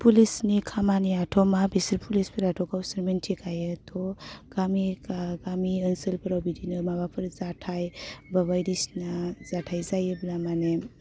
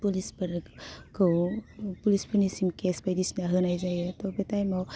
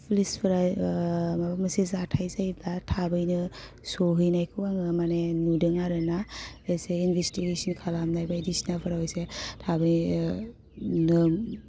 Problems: constant background noise